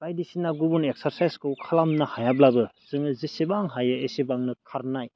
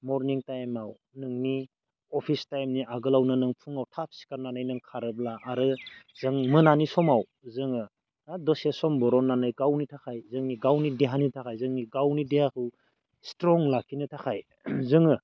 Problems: none marked